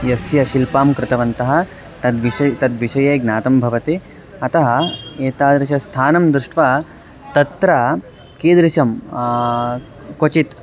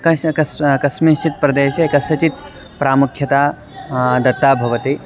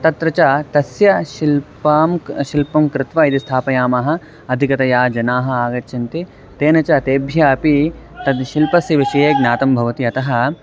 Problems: constant background noise